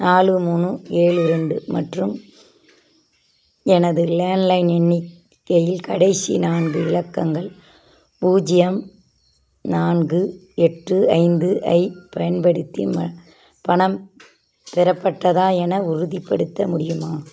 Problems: background sounds at intervals